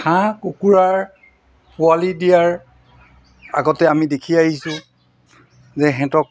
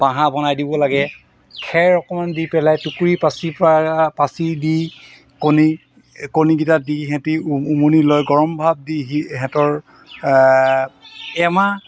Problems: constant background noise